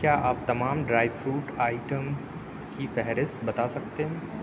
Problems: constant background noise, low volume